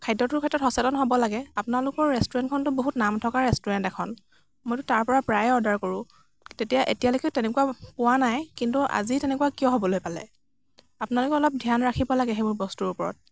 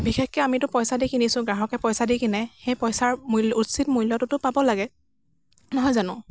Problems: constant background noise